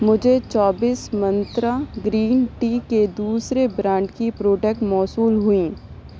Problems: constant background noise